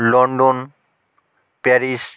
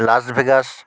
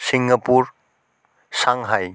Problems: none marked